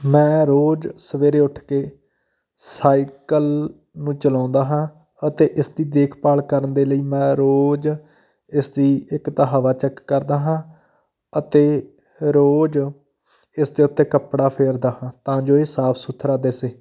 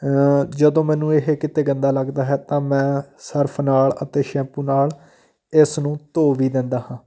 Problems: none marked